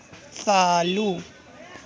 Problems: constant background noise